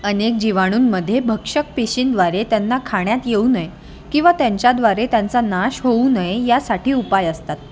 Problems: constant background noise, continuous background conversations